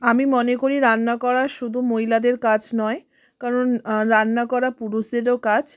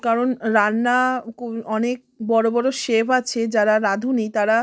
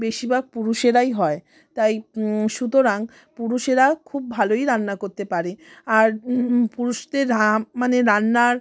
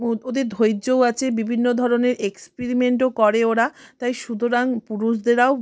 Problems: constant background noise, background conversations at intervals